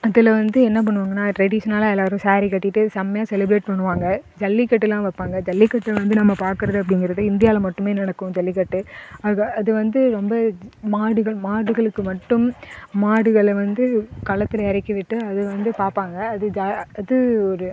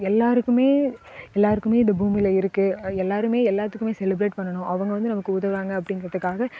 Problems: none marked